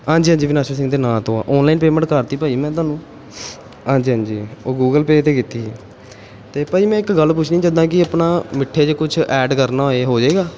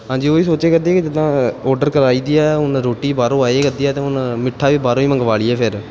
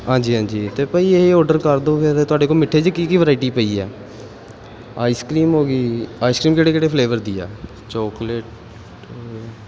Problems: background sounds at intervals